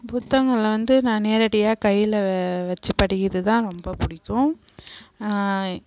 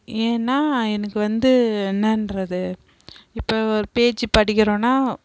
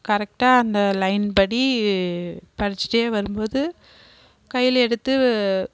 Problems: background sounds at intervals